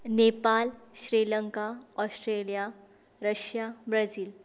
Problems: constant background noise